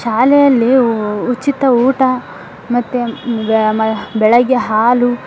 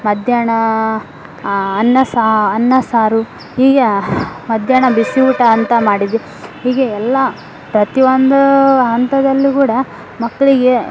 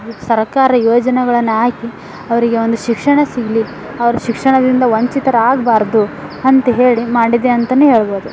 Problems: none marked